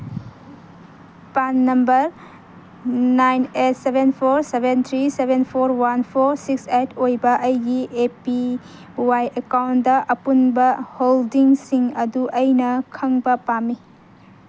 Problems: none marked